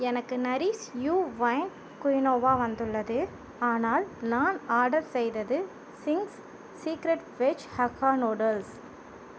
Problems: constant background noise